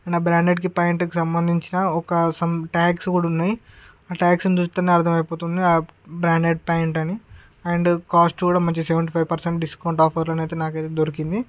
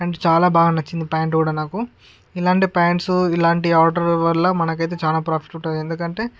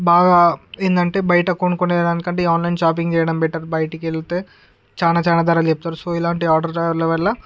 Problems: constant background noise